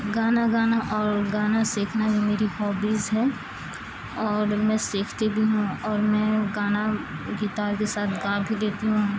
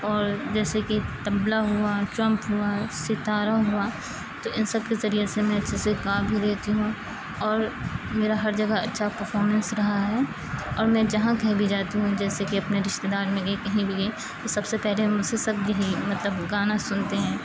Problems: constant background noise, low volume